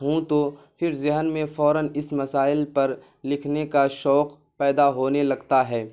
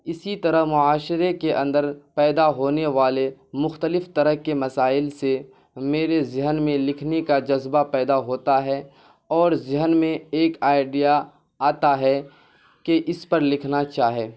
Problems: constant background noise